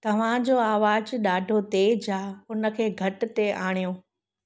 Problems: none marked